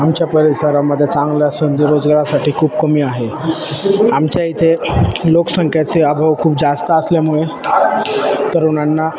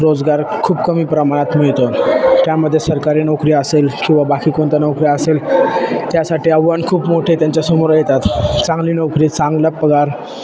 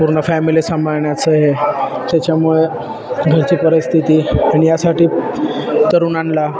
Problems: constant background noise, continuous background conversations